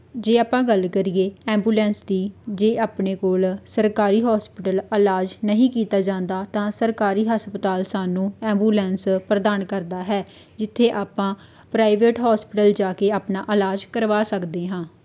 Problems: none marked